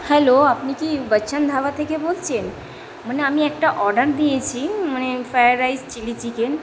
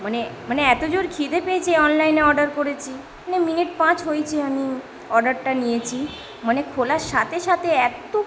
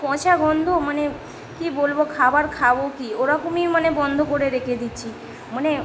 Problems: constant background noise, background conversations at intervals